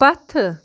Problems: constant background noise